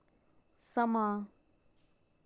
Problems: low volume